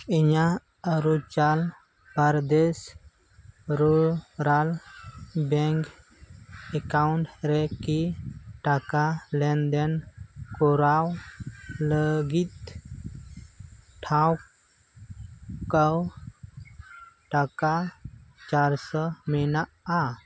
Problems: constant background noise